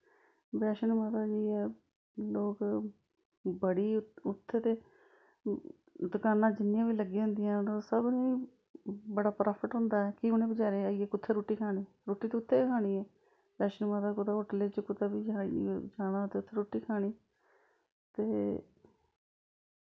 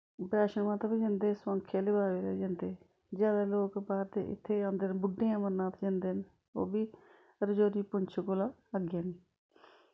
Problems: background sounds at intervals